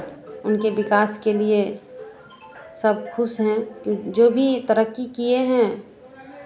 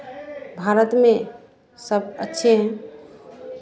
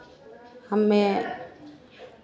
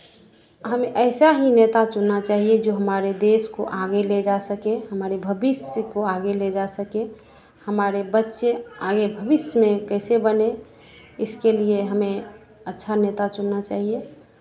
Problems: constant background noise